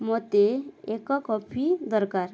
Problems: none marked